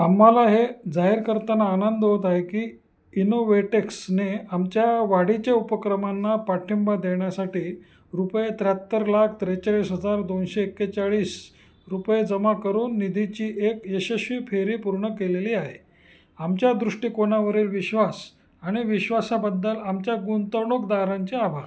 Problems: constant background noise